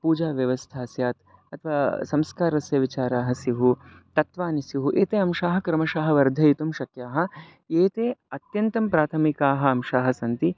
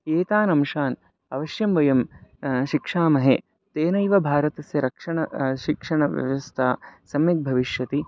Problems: none marked